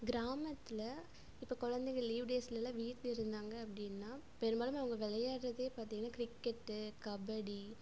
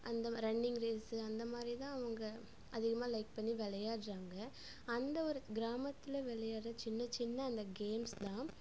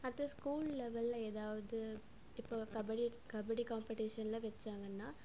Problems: none marked